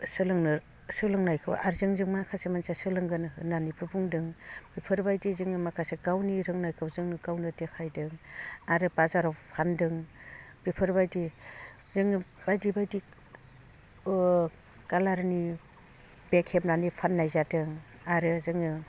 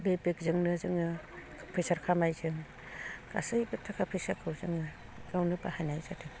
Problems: low volume